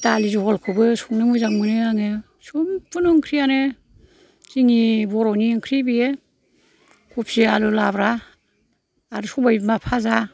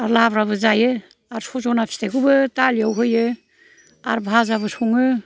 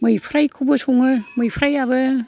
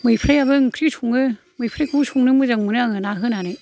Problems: none marked